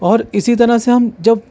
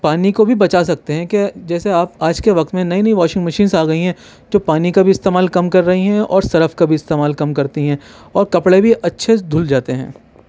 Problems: none marked